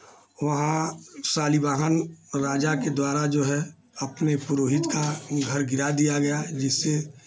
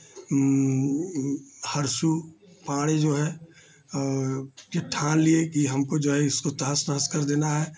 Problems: constant background noise